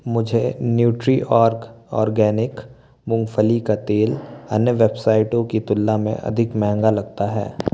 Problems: constant background noise